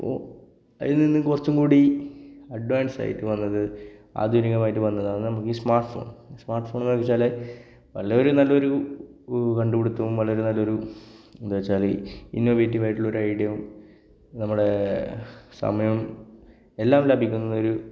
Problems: none marked